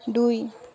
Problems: constant background noise